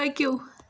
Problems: constant background noise